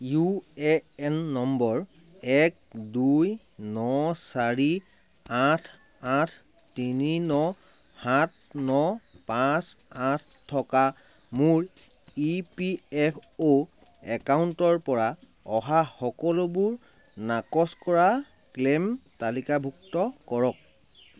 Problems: constant background noise